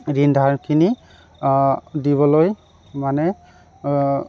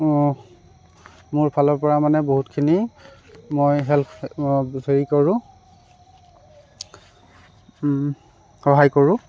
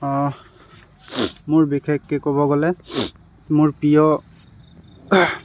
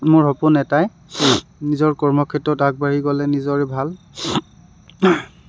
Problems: background sounds at intervals